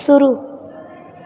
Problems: none marked